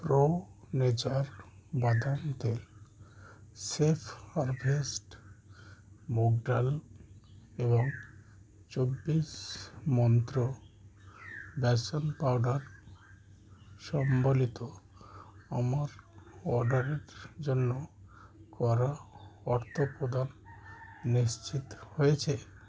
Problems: none marked